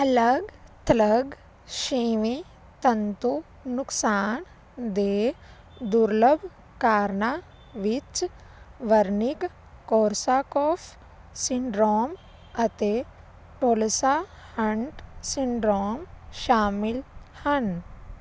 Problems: constant background noise